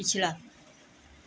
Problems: background sounds at intervals